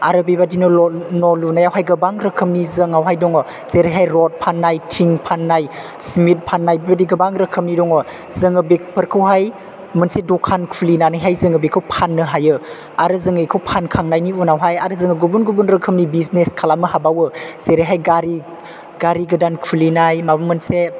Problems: none marked